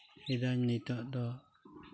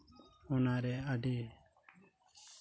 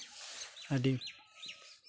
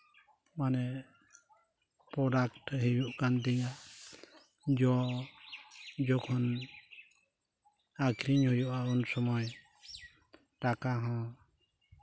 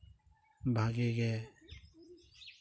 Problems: none marked